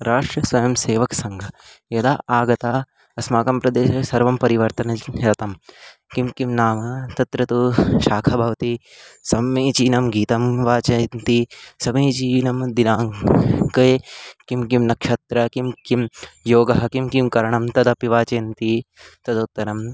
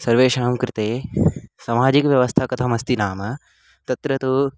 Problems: constant background noise